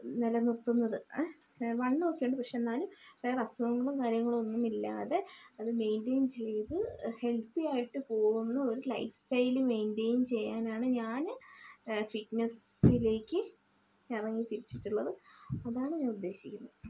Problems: low volume